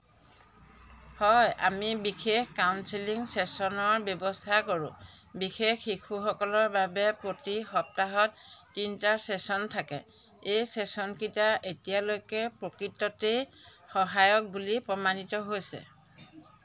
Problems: background sounds at intervals